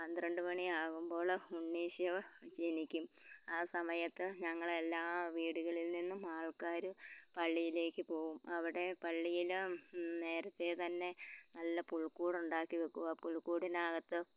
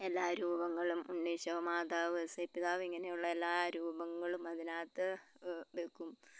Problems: background sounds at intervals, low volume